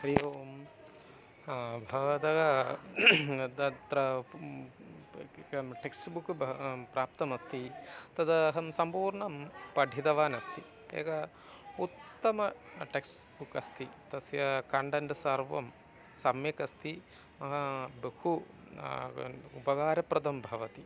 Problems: constant background noise